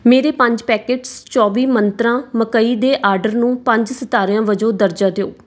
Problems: background sounds at intervals